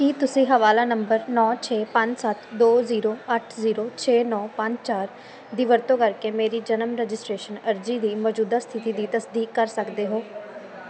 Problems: constant background noise